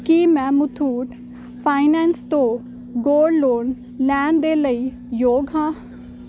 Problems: none marked